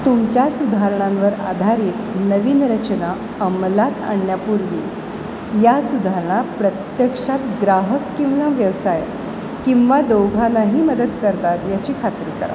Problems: constant background noise